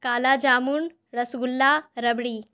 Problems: none marked